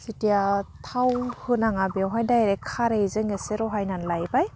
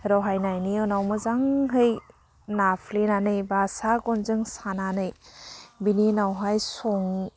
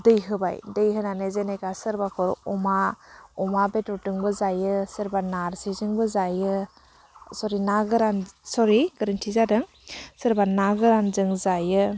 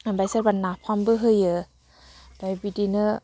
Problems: none marked